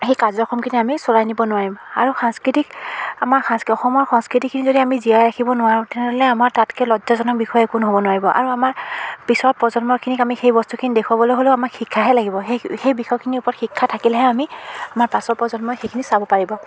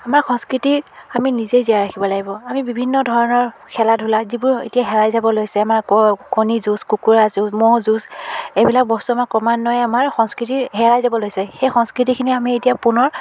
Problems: constant background noise, background conversations at intervals